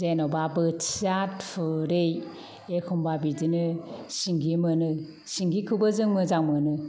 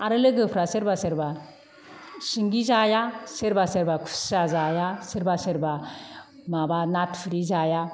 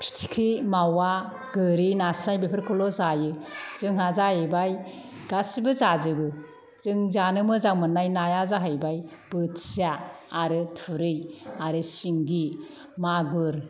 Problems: none marked